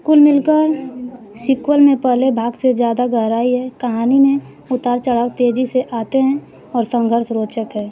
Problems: none marked